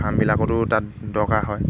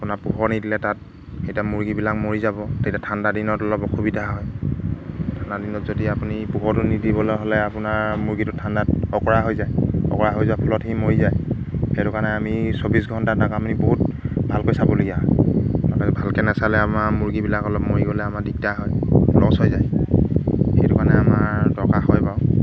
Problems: none marked